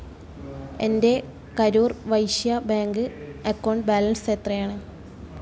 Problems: none marked